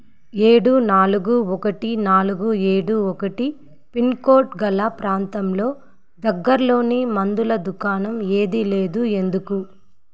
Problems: background sounds at intervals